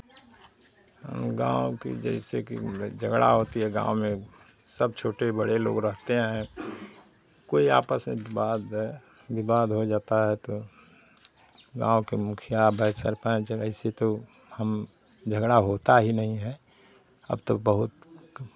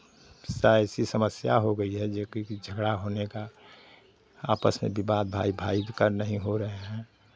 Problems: none marked